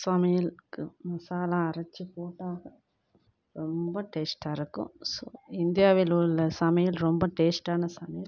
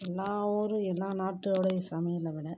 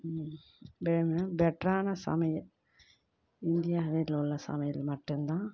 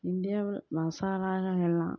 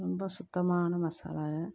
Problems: low volume